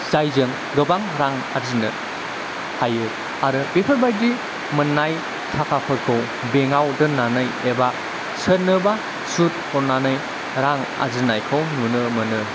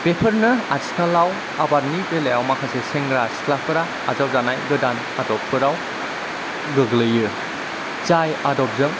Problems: constant background noise, low volume